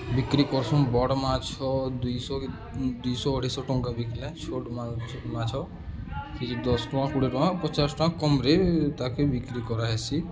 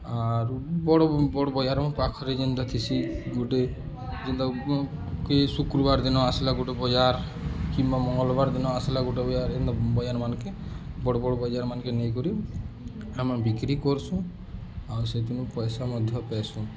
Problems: constant background noise, continuous background conversations